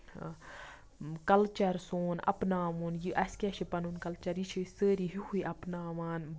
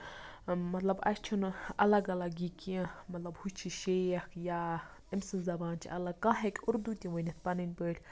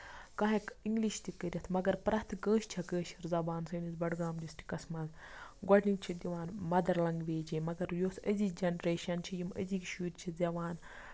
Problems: background sounds at intervals, low volume